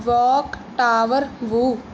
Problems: background sounds at intervals